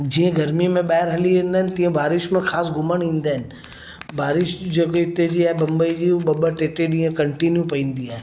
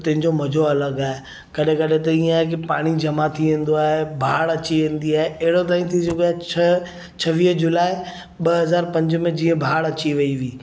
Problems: background sounds at intervals, echo